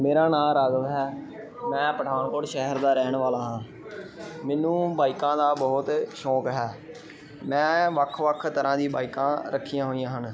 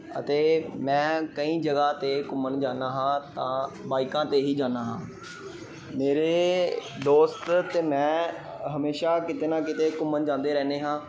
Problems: constant background noise